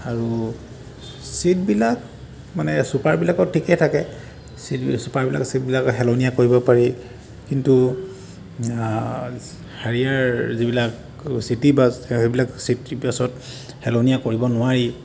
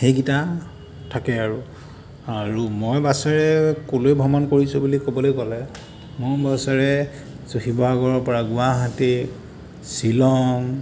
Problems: constant background noise